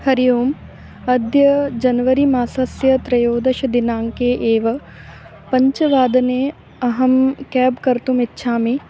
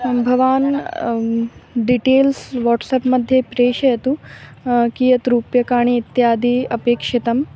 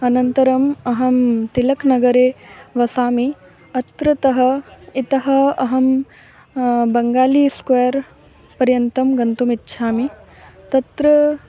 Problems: constant background noise, background conversations at intervals